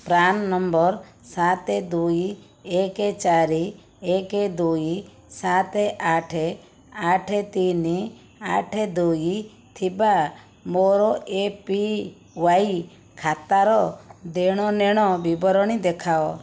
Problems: none marked